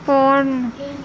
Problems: constant background noise